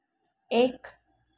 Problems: constant background noise